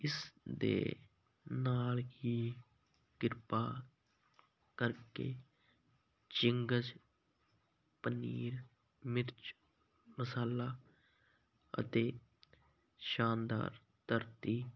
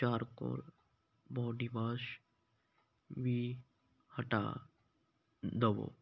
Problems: none marked